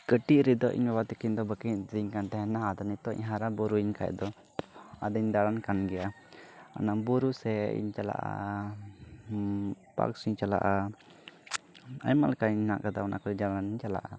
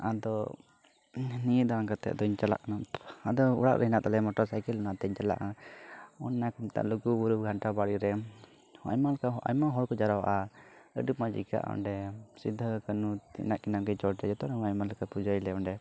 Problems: background sounds at intervals, low volume